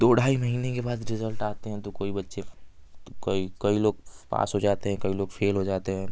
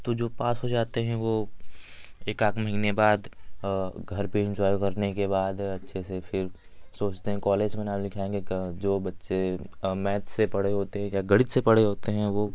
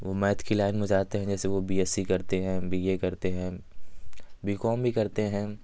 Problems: none marked